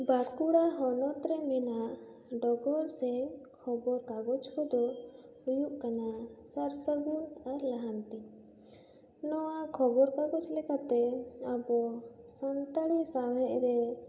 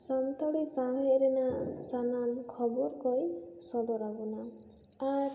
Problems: constant background noise